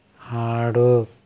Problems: none marked